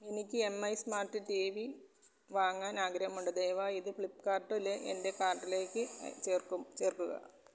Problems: background sounds at intervals, low volume